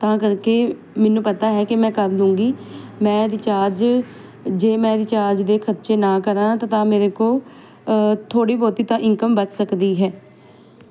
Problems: none marked